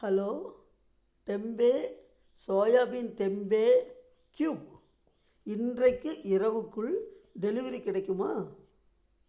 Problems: low volume